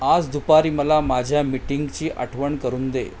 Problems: constant background noise